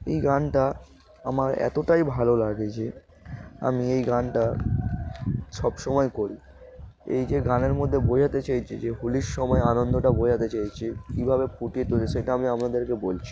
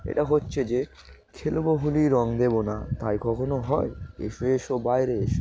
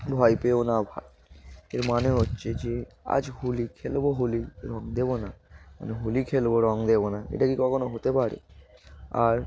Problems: constant background noise